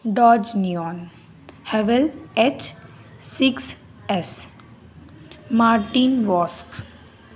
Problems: constant background noise, continuous background conversations